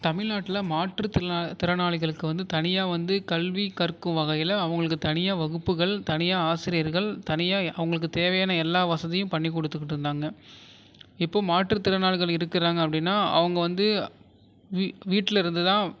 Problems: none marked